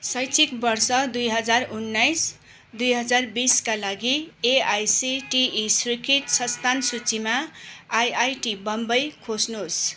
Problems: background sounds at intervals